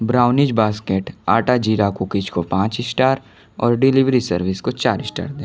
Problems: constant background noise